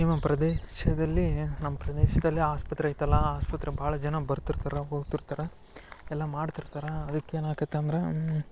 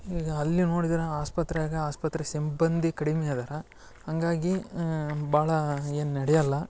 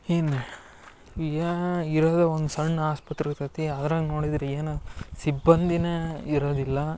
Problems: none marked